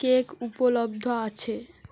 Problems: none marked